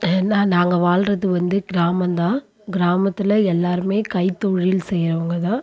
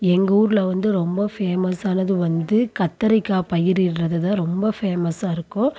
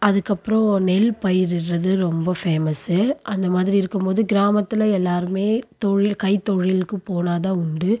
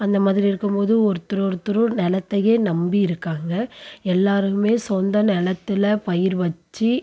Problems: constant background noise